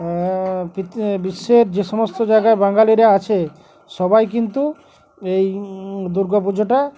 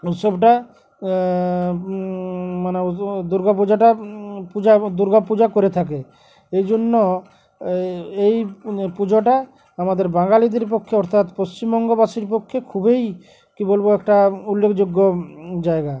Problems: none marked